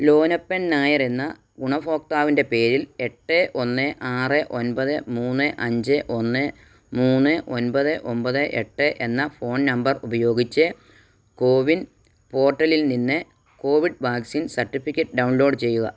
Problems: none marked